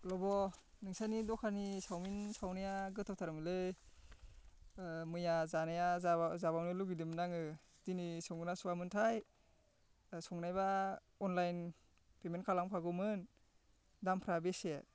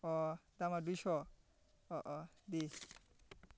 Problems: constant background noise